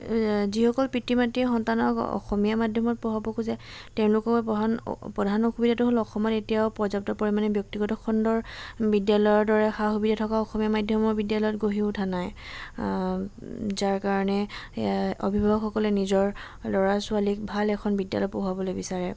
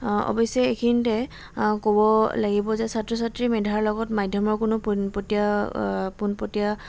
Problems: none marked